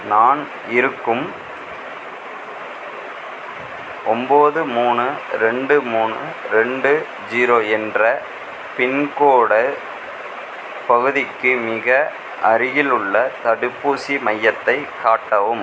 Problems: constant background noise